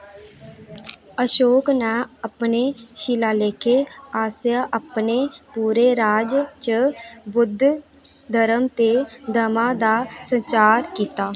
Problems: none marked